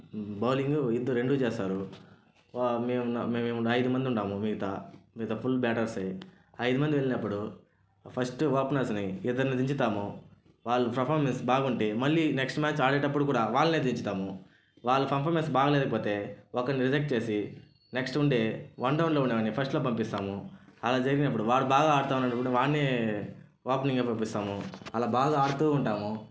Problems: none marked